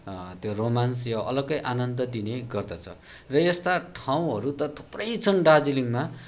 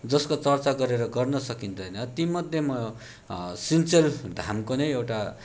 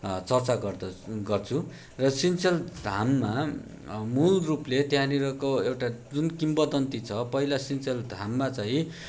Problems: background sounds at intervals